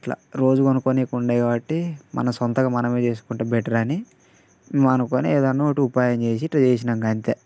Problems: constant background noise